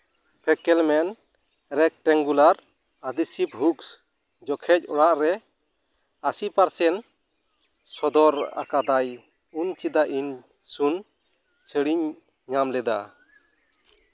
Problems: background sounds at intervals